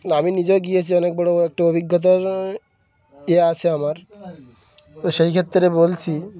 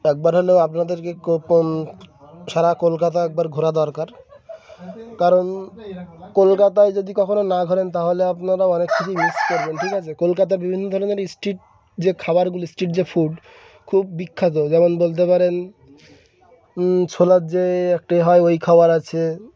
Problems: none marked